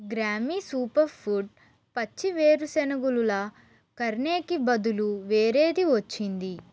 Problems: constant background noise